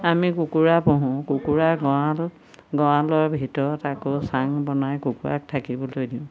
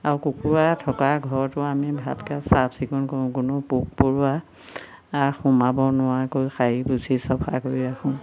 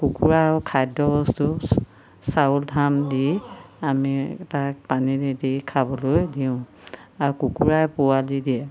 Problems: constant background noise